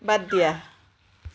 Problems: background sounds at intervals